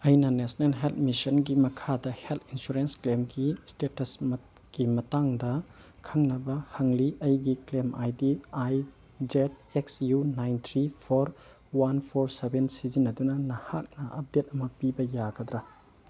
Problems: none marked